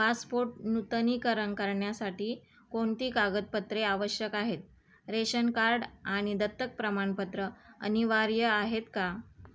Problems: background sounds at intervals